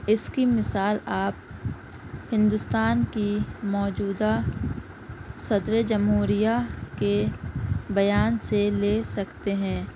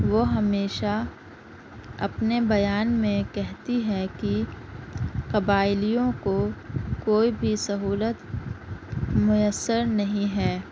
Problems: constant background noise